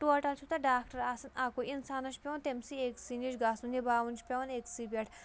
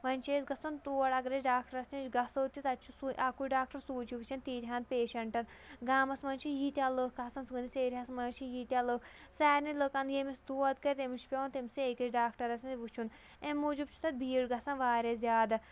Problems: low volume